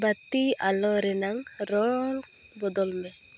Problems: constant background noise